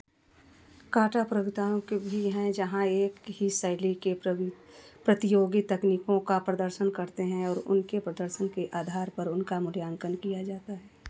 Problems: background sounds at intervals